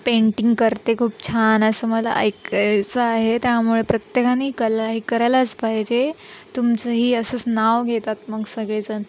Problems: none marked